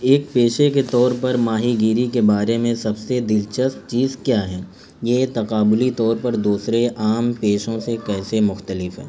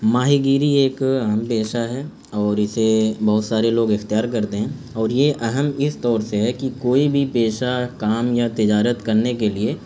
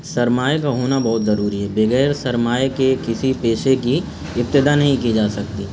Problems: constant background noise